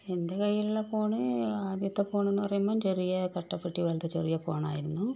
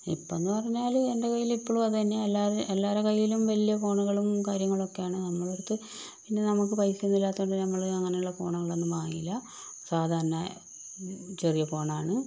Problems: low volume